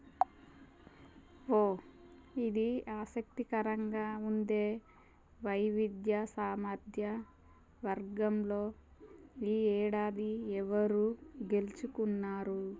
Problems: none marked